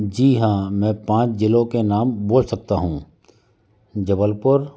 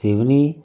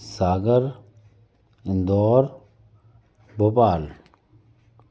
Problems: constant background noise, background conversations at intervals